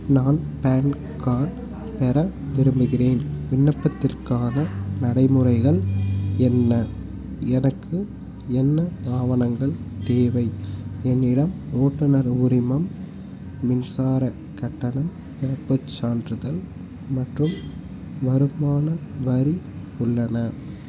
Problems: constant background noise